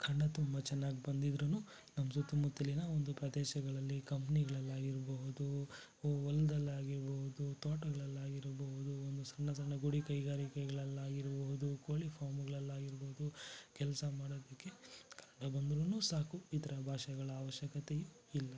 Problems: low volume